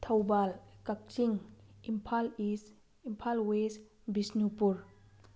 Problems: background sounds at intervals